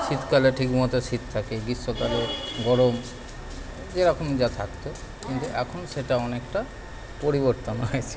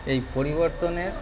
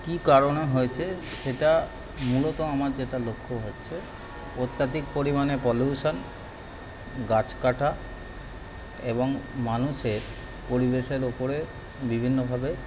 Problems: constant background noise, continuous background conversations